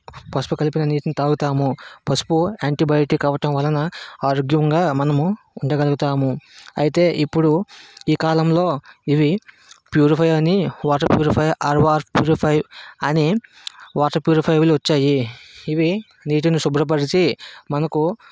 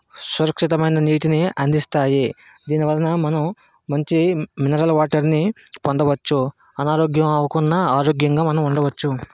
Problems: background sounds at intervals